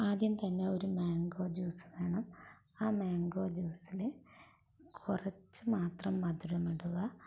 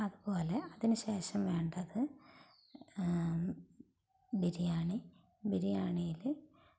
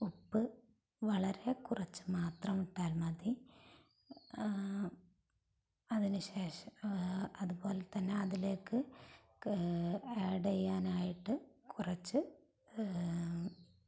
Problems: background sounds at intervals, low volume